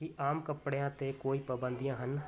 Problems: constant background noise